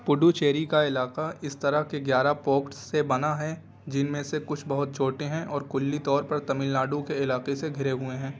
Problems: constant background noise, continuous background conversations